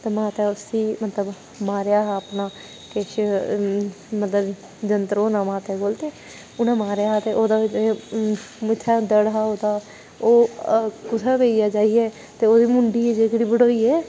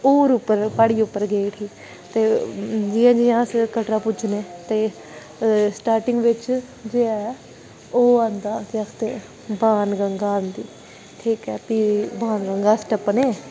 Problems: none marked